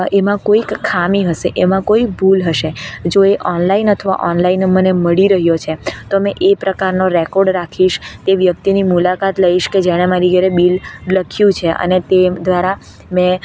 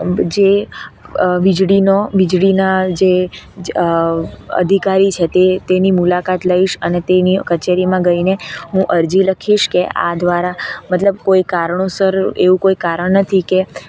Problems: constant background noise